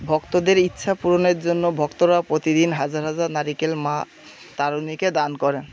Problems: constant background noise, background conversations at intervals